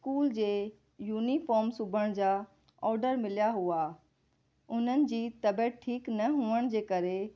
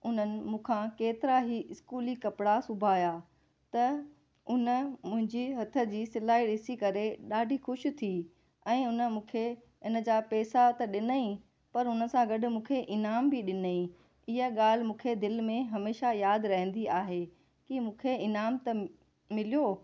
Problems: none marked